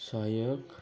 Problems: constant background noise